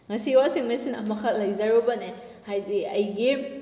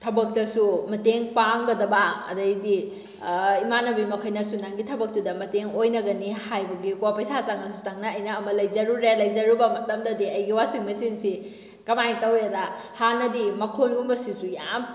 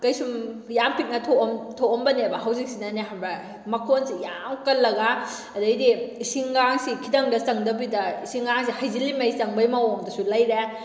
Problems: none marked